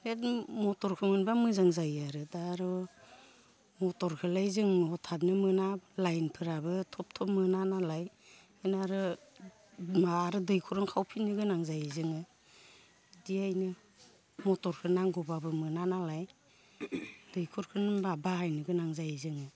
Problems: none marked